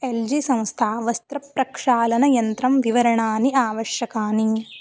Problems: constant background noise